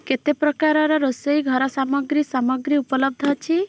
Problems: constant background noise